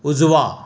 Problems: none marked